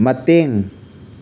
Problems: none marked